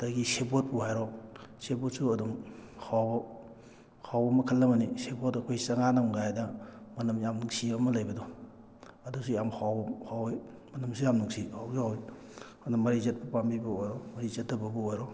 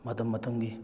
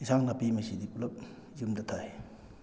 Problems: background sounds at intervals